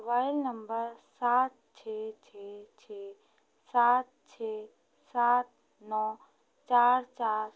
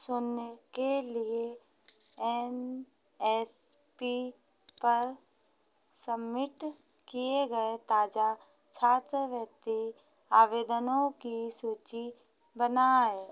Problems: constant background noise